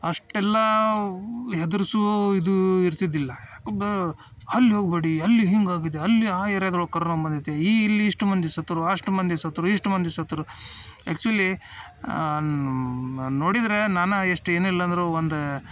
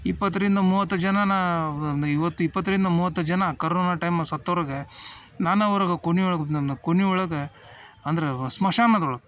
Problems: background sounds at intervals